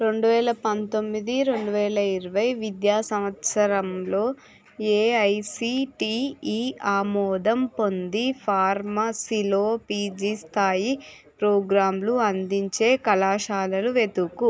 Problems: continuous background conversations